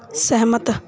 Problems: background sounds at intervals